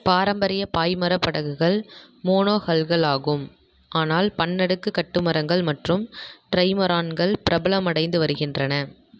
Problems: echo